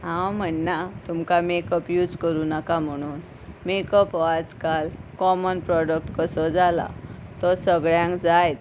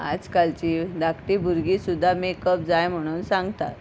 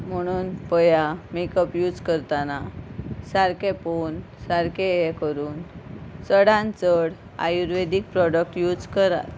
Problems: constant background noise